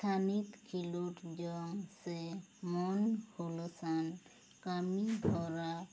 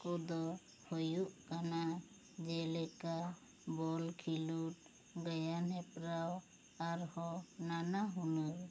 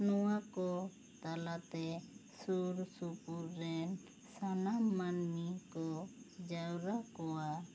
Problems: constant background noise